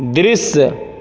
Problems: none marked